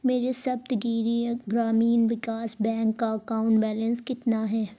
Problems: none marked